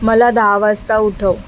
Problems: constant background noise